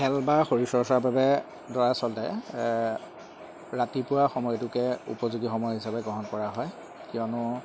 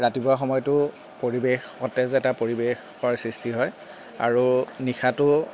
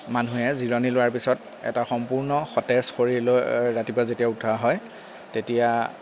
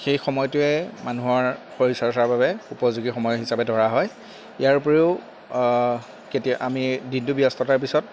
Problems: background sounds at intervals